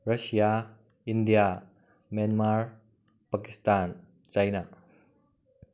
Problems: none marked